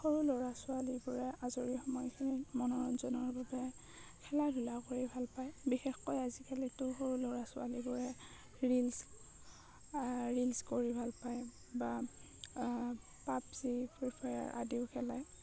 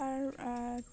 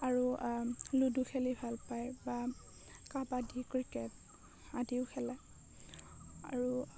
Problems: low volume